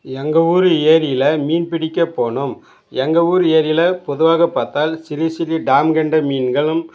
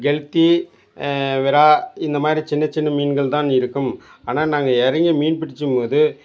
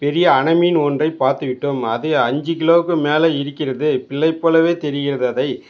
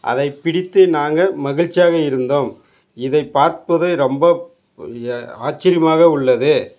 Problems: background conversations at intervals